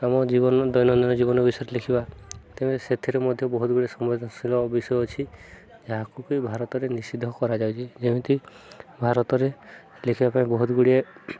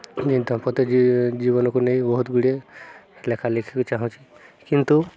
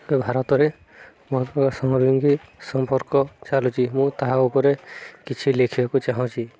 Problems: continuous background conversations